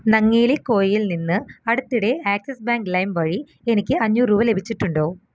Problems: background sounds at intervals